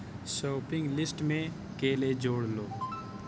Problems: constant background noise